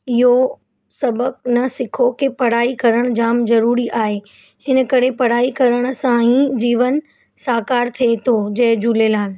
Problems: constant background noise